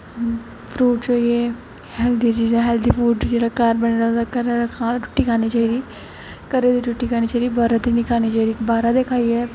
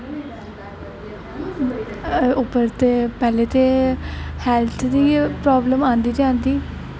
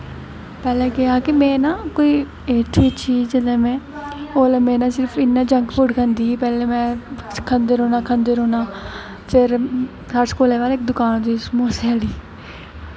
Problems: constant background noise